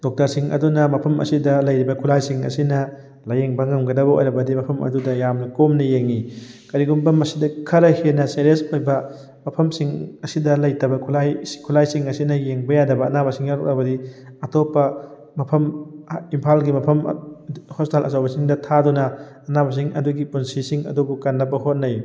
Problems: background sounds at intervals